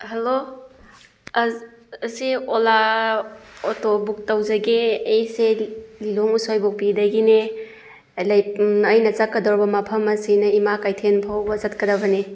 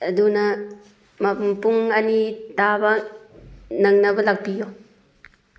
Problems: none marked